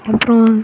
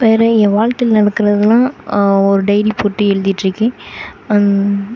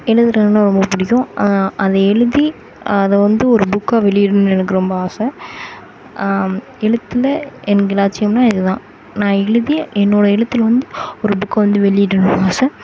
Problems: constant background noise